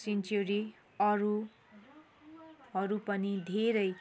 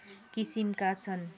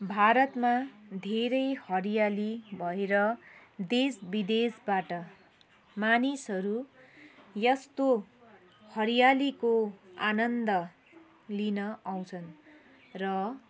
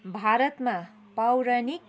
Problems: none marked